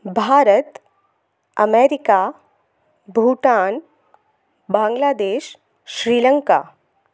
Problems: constant background noise